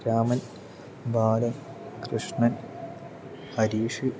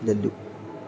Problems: low volume